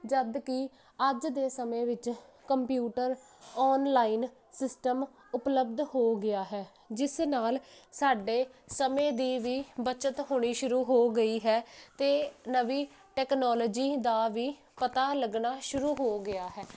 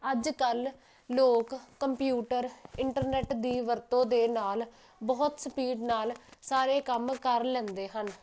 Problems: none marked